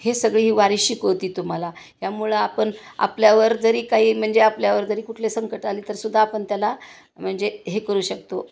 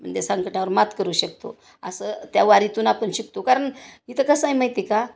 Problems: constant background noise